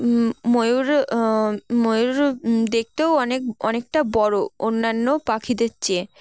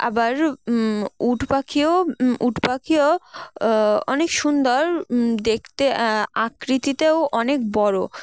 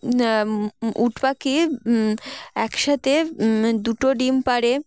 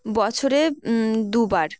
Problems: background sounds at intervals, background conversations at intervals